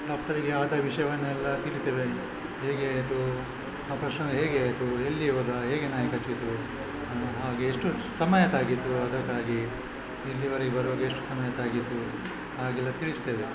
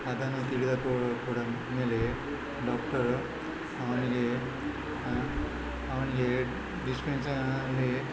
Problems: constant background noise, background conversations at intervals